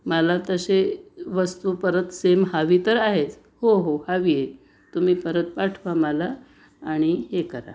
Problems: none marked